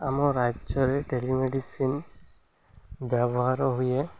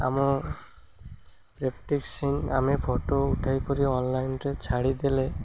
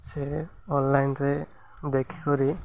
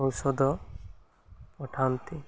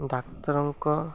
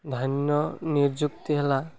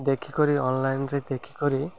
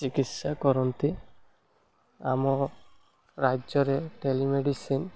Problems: none marked